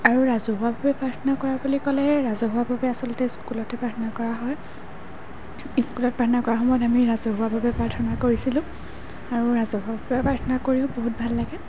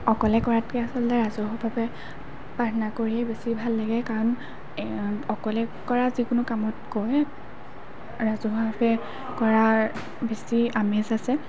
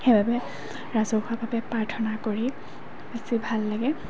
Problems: background sounds at intervals